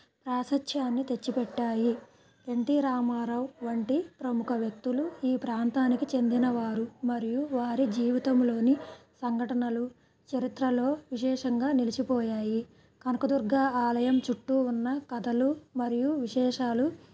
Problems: low volume